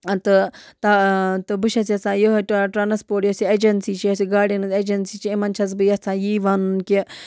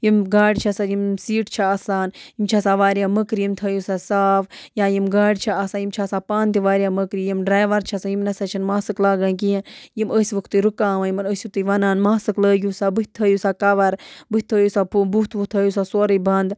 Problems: background sounds at intervals